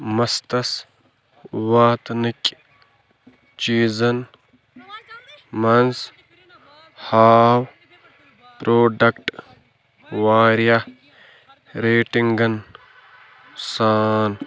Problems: constant background noise